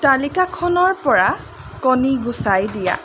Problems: constant background noise